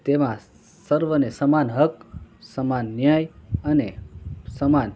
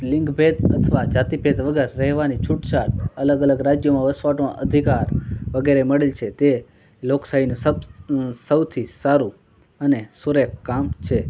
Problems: constant background noise